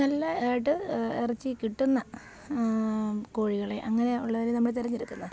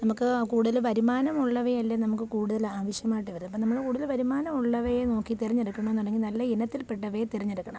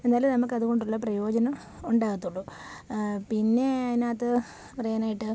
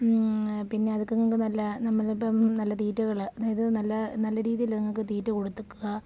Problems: none marked